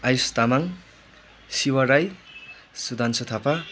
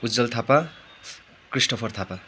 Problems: constant background noise